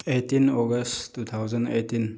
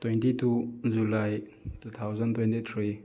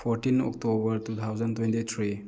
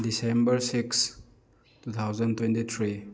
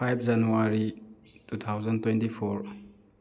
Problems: background sounds at intervals